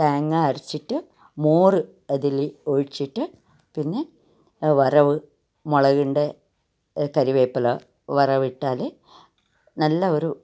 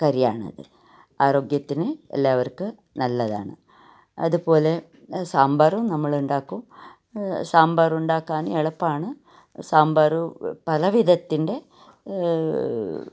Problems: none marked